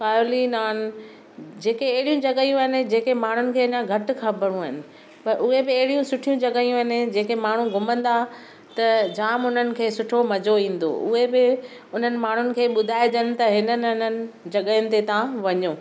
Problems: background sounds at intervals